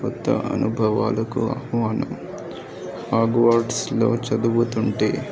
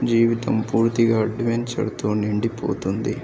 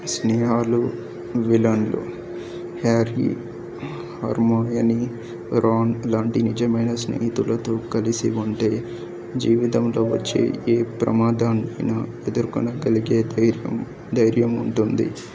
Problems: background sounds at intervals